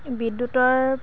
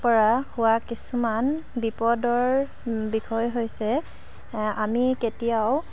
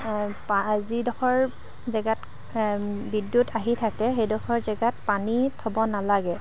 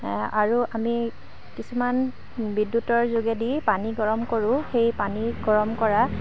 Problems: background sounds at intervals, low volume